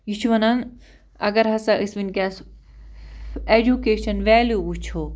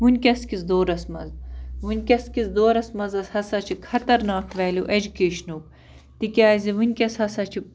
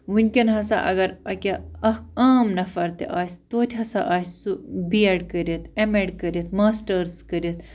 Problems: constant background noise